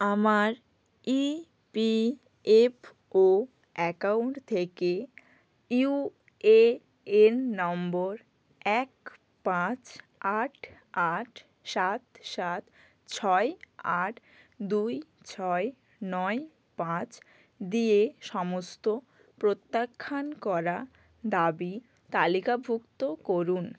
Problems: none marked